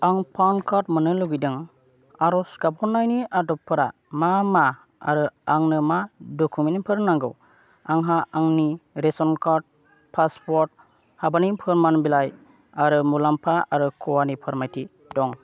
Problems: none marked